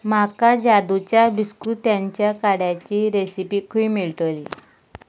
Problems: background sounds at intervals